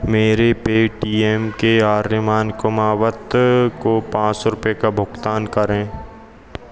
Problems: constant background noise